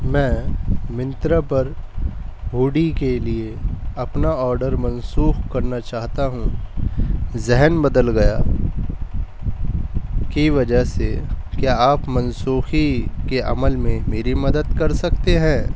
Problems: background sounds at intervals